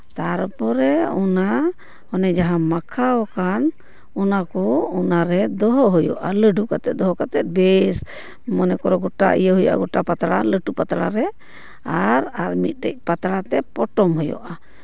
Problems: none marked